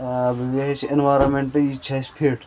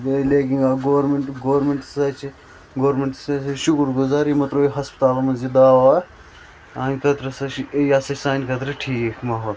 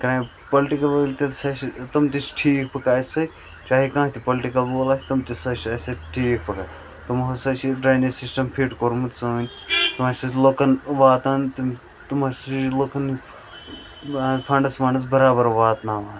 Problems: constant background noise